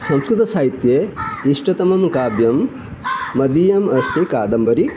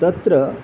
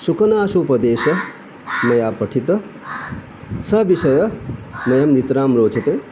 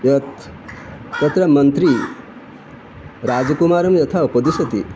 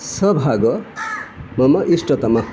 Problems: constant background noise